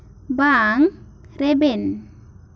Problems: constant background noise